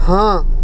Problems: none marked